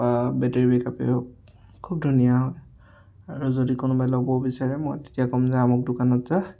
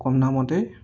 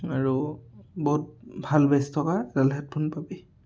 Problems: background conversations at intervals